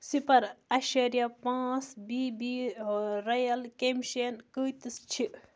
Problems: none marked